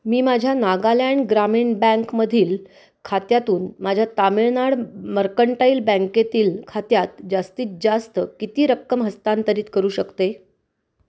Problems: constant background noise